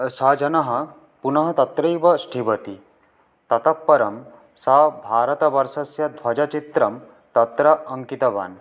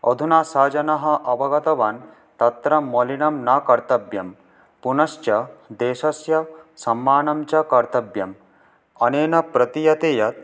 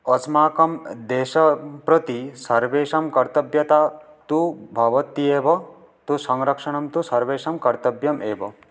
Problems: background sounds at intervals